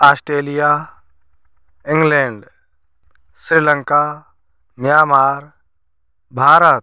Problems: none marked